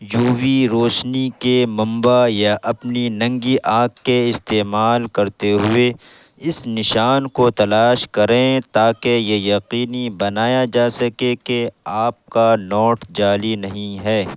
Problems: constant background noise